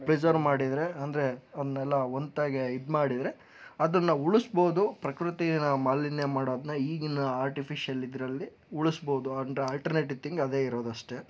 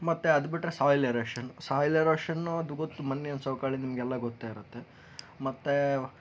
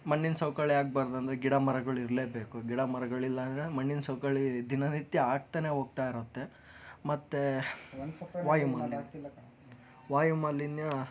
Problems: background conversations at intervals